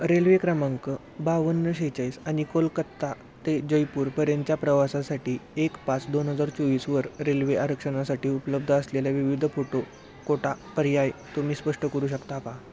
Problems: none marked